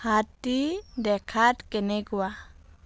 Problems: background sounds at intervals